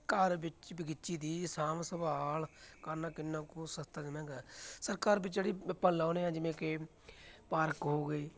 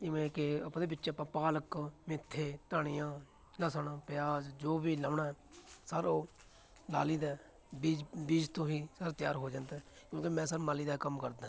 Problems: continuous background conversations